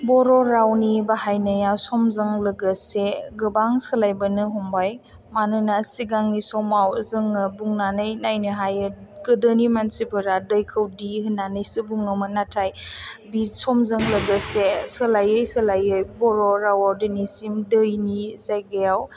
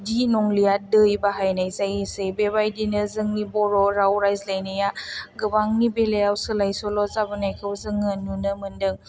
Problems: none marked